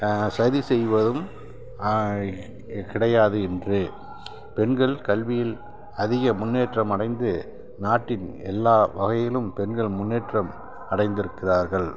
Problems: constant background noise